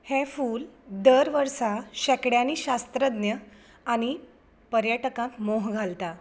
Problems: background sounds at intervals